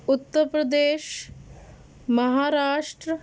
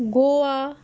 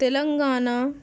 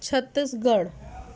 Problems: constant background noise, background conversations at intervals